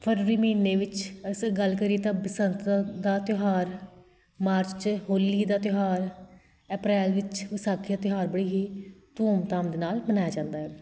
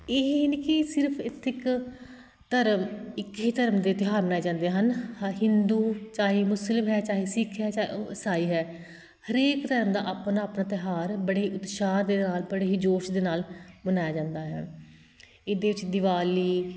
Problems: constant background noise